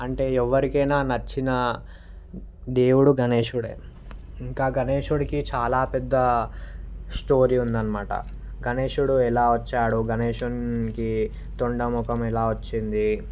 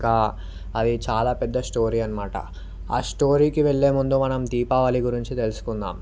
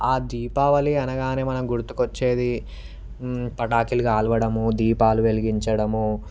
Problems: none marked